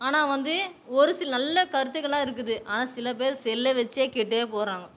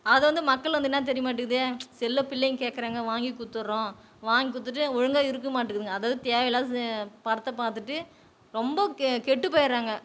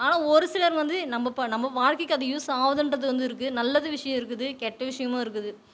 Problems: background conversations at intervals